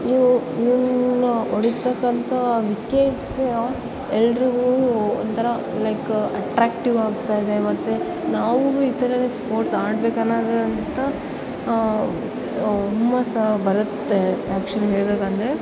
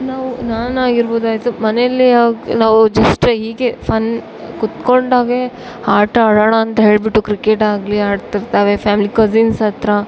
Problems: background sounds at intervals